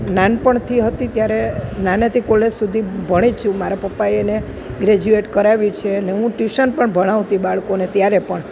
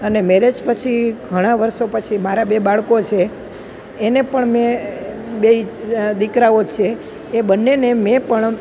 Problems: constant background noise